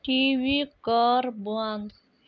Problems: background sounds at intervals